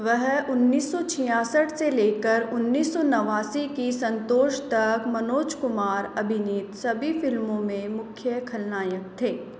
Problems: constant background noise